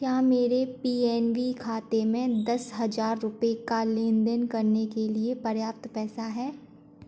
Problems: background sounds at intervals